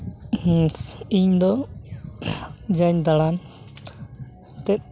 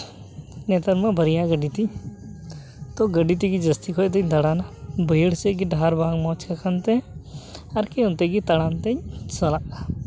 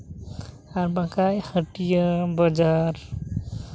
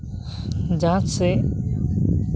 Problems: constant background noise